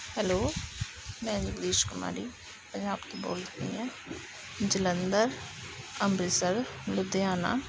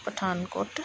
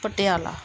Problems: none marked